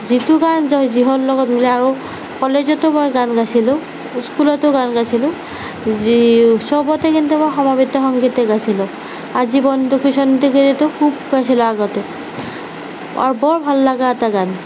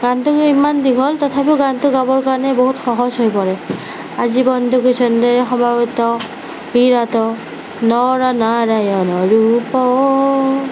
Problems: background sounds at intervals, low volume